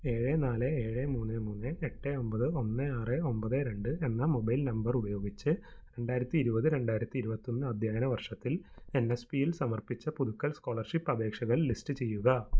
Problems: low volume